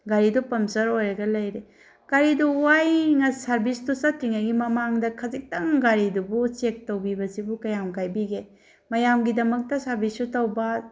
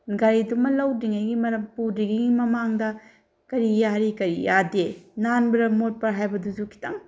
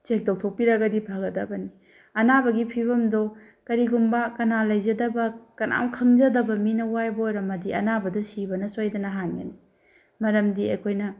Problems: none marked